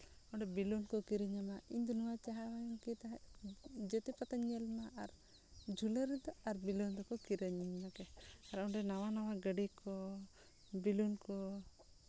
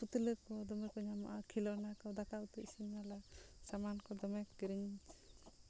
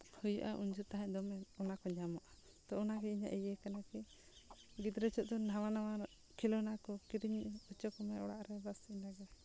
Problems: low volume